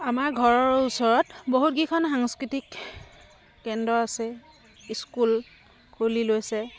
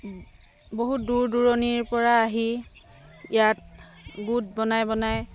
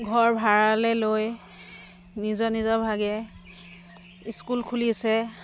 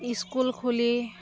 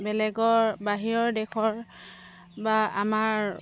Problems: constant background noise